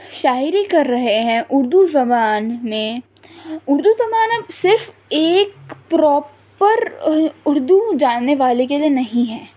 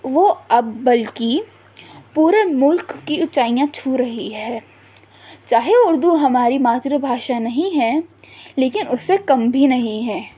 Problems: none marked